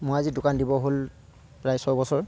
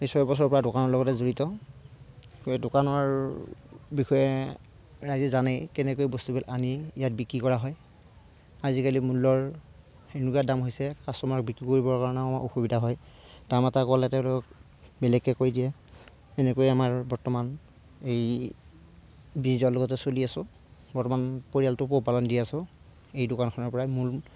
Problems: background sounds at intervals